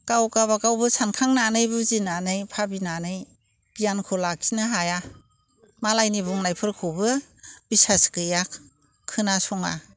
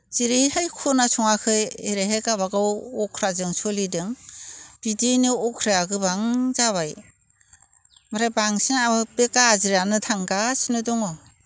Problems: none marked